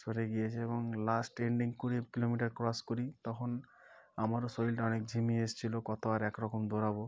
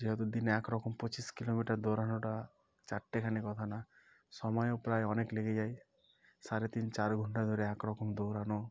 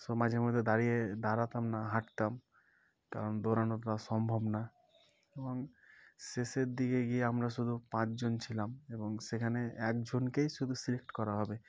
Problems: background sounds at intervals, background conversations at intervals